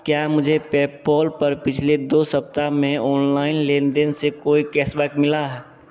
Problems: none marked